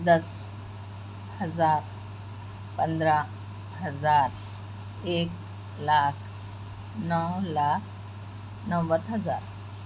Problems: constant background noise